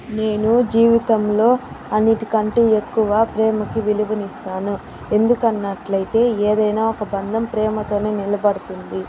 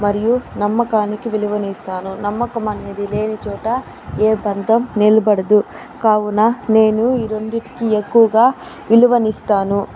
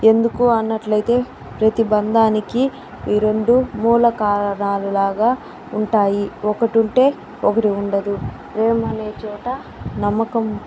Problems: none marked